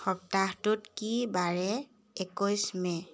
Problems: background sounds at intervals